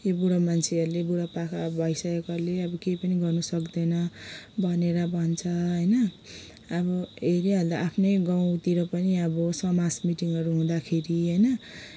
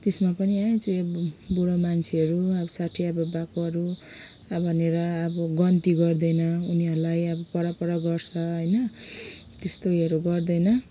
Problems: background sounds at intervals